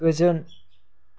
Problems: low volume